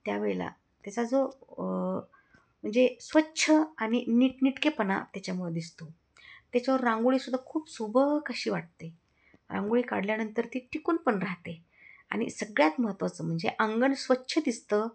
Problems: none marked